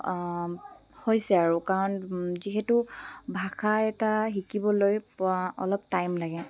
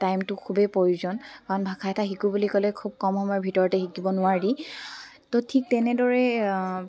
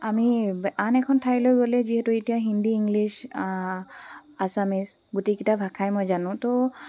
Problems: background sounds at intervals